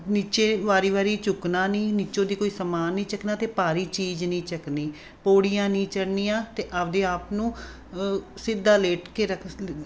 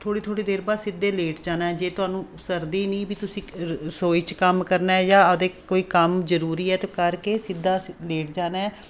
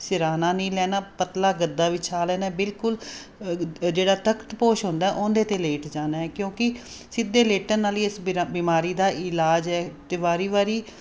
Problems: constant background noise